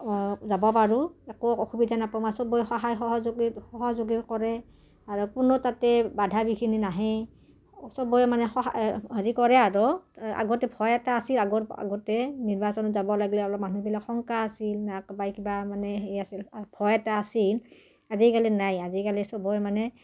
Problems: none marked